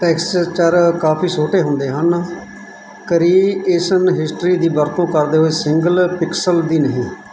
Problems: background sounds at intervals